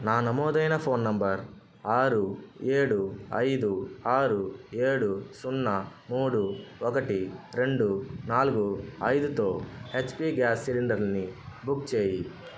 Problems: constant background noise